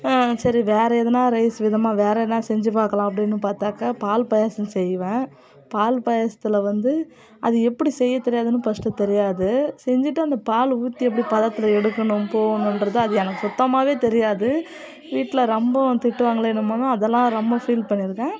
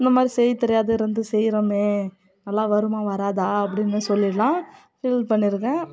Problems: continuous background conversations